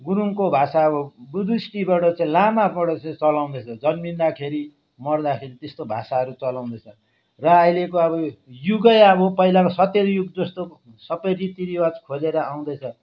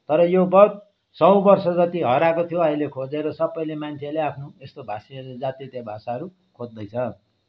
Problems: none marked